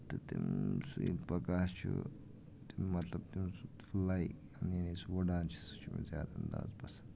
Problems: background sounds at intervals, low volume